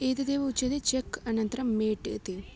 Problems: none marked